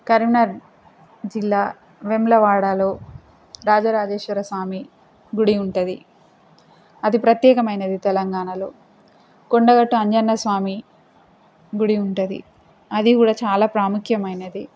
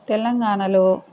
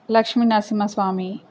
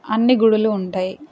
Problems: constant background noise